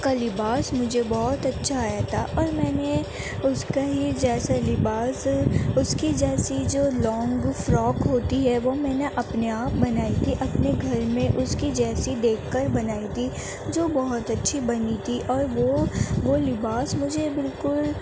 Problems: constant background noise